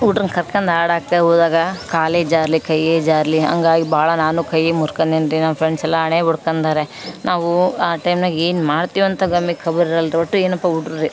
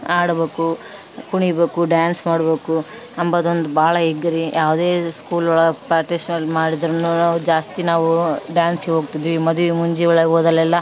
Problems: background sounds at intervals